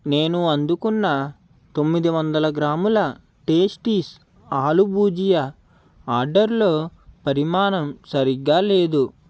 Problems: constant background noise